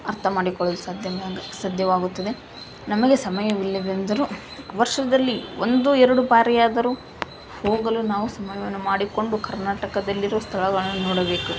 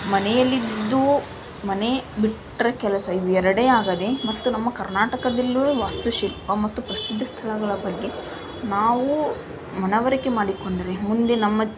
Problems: background sounds at intervals